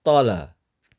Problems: none marked